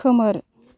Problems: background conversations at intervals